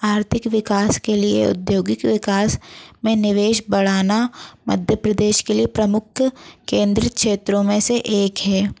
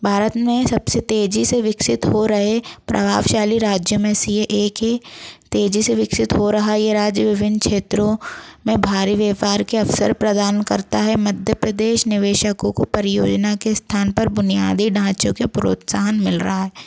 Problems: constant background noise